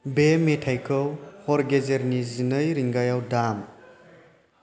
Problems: constant background noise